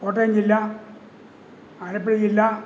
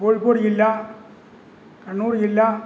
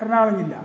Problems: constant background noise